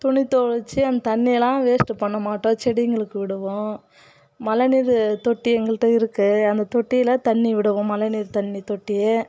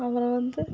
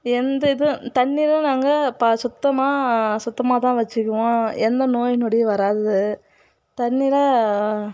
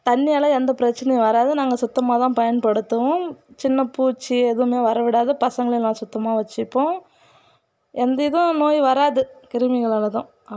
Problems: background sounds at intervals